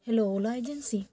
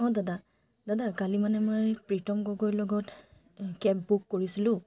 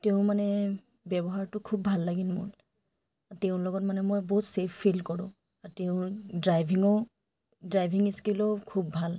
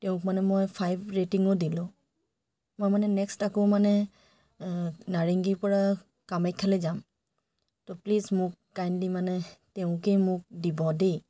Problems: background sounds at intervals